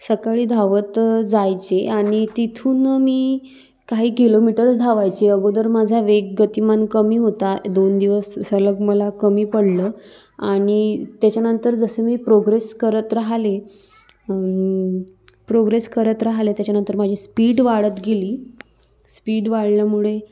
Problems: constant background noise